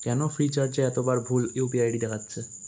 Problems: constant background noise